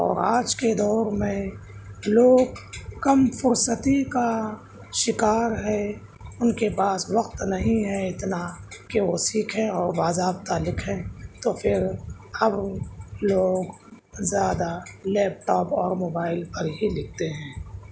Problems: none marked